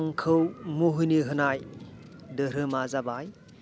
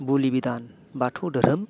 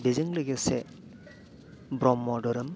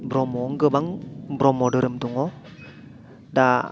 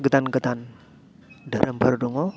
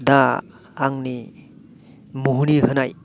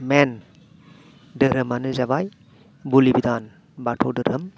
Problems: none marked